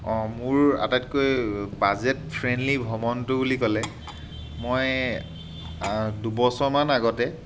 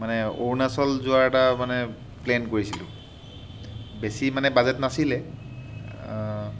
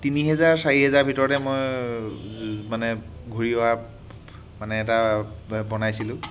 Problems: constant background noise